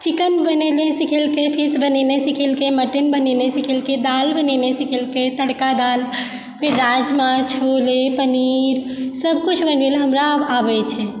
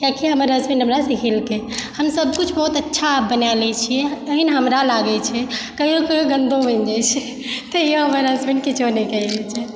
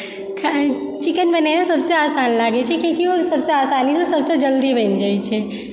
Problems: background sounds at intervals